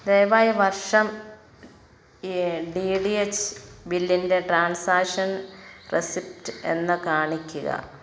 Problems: background sounds at intervals